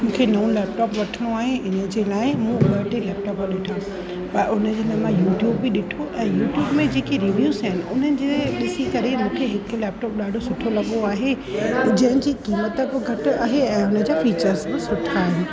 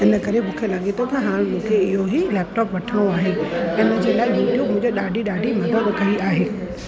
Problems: constant background noise